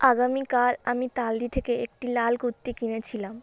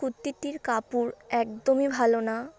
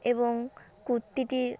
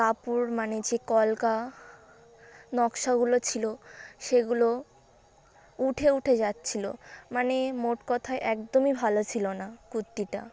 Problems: constant background noise, background conversations at intervals